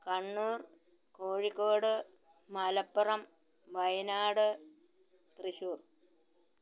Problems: background sounds at intervals, low volume